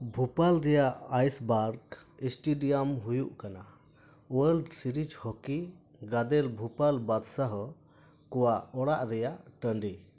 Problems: none marked